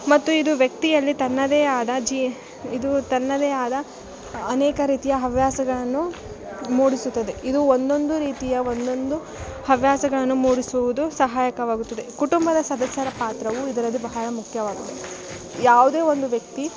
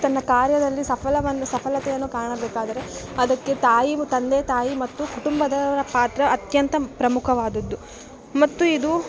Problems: background sounds at intervals